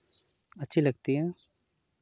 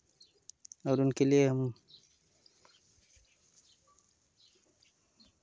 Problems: constant background noise